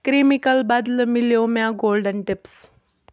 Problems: none marked